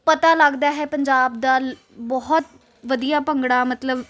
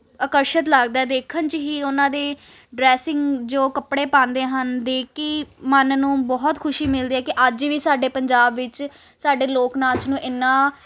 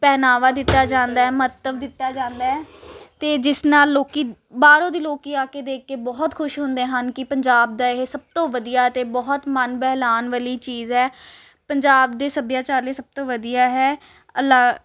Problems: constant background noise